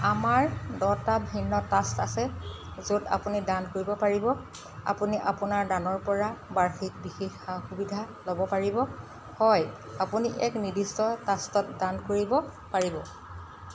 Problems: constant background noise